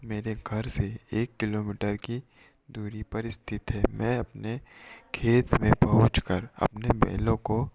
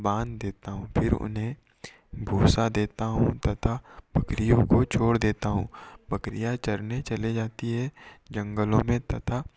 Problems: echo